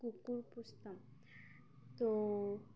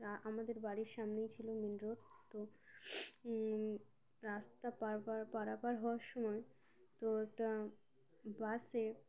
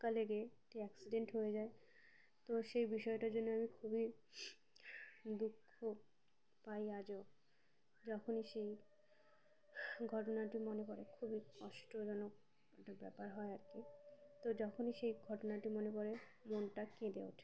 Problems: low volume